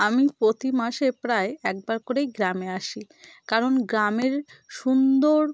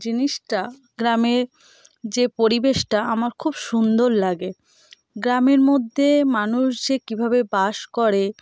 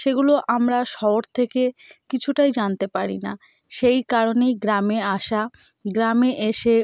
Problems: none marked